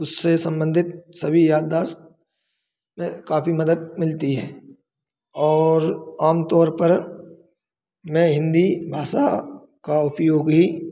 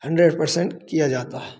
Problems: none marked